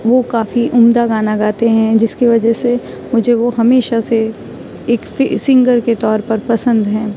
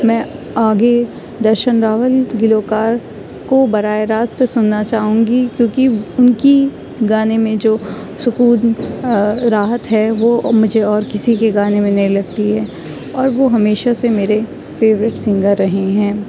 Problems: none marked